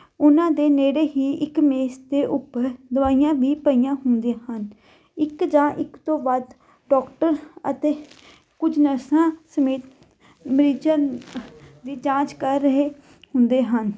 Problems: background sounds at intervals